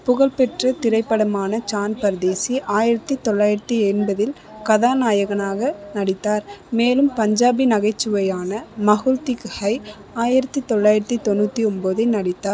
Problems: continuous background conversations